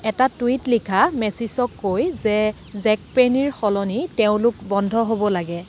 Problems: none marked